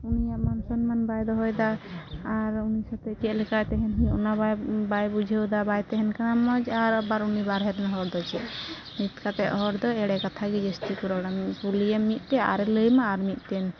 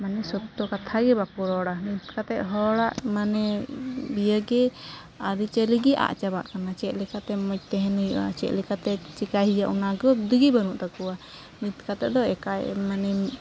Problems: constant background noise, low volume